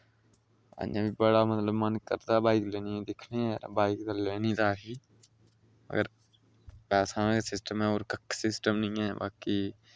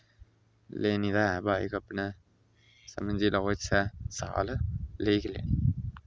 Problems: low volume